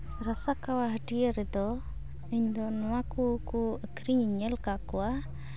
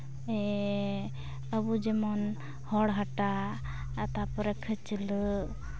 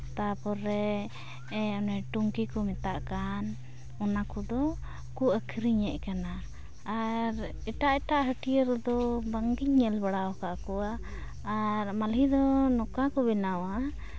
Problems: constant background noise